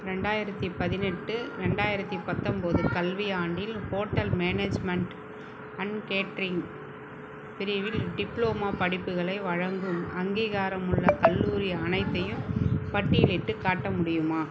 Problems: constant background noise